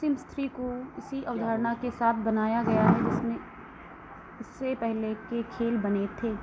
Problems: constant background noise